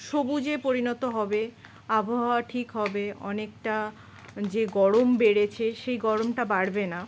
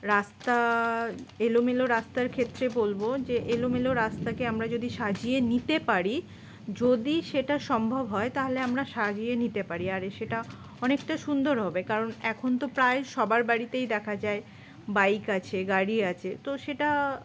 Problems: none marked